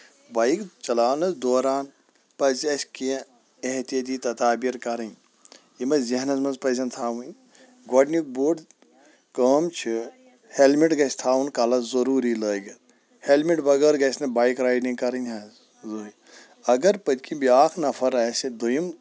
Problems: none marked